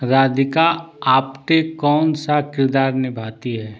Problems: none marked